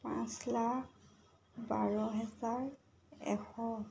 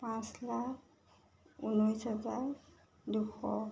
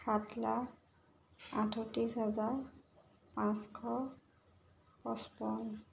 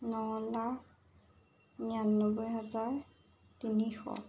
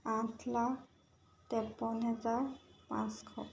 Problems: none marked